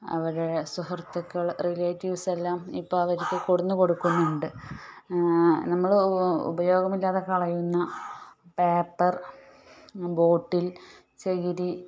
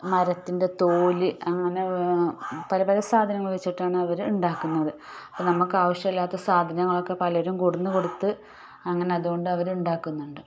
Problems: background sounds at intervals